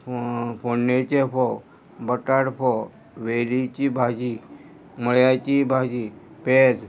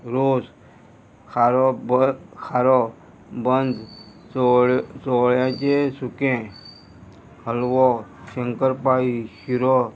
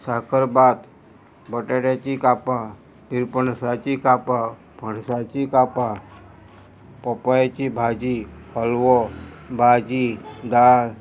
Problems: constant background noise